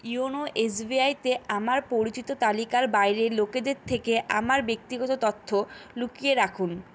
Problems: constant background noise